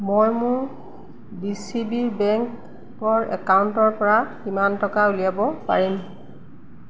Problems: none marked